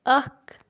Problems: background sounds at intervals